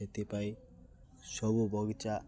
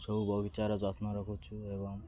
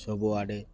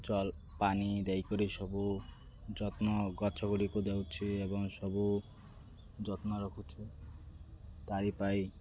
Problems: constant background noise